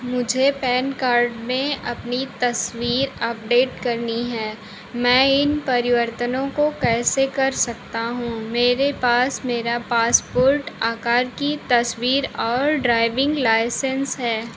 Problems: constant background noise